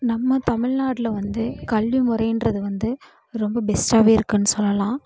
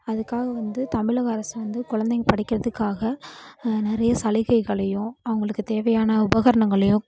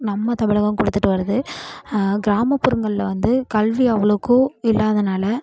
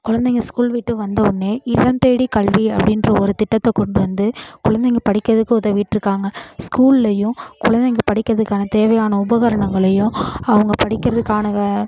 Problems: continuous background conversations